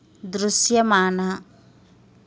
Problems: constant background noise